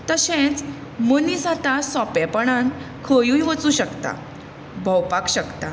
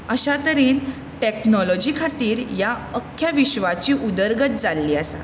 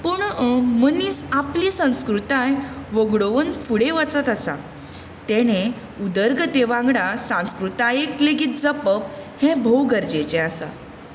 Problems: none marked